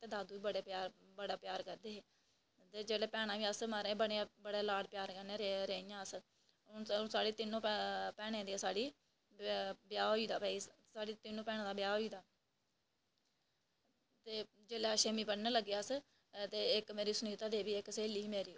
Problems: none marked